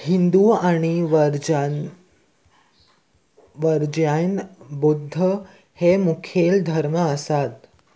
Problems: none marked